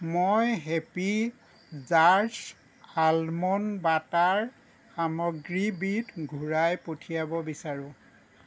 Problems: none marked